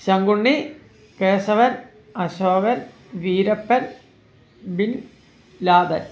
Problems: background sounds at intervals